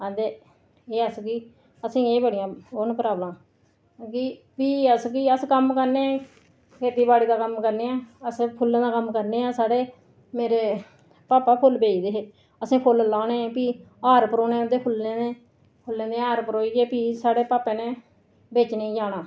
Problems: none marked